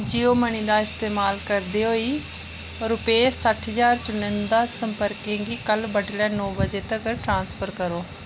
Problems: none marked